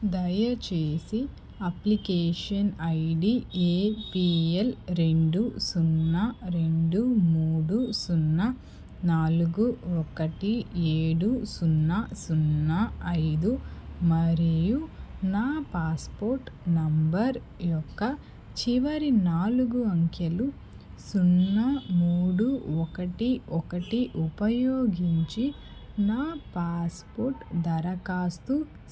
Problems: constant background noise